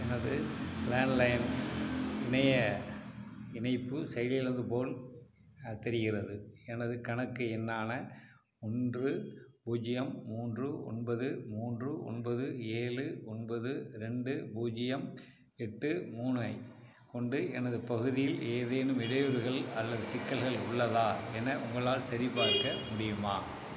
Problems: background sounds at intervals